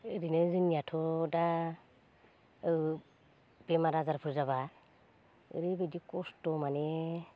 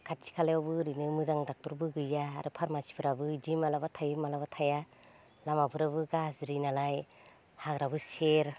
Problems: low volume